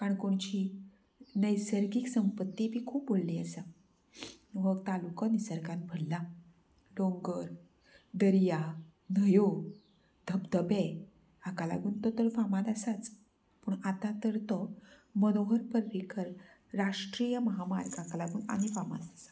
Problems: background sounds at intervals, low volume